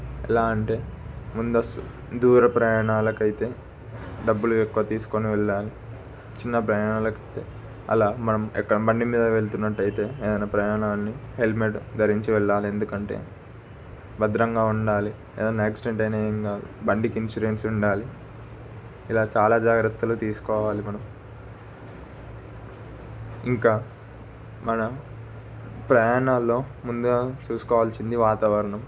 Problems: constant background noise